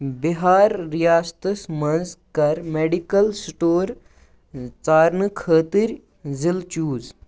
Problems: background sounds at intervals